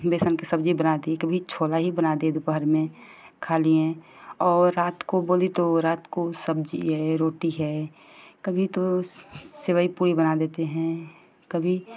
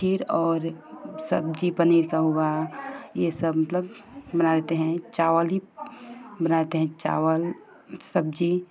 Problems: constant background noise